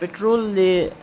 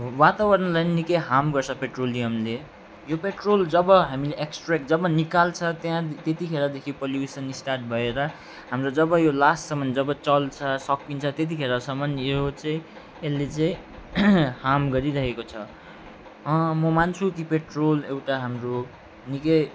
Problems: background sounds at intervals, background conversations at intervals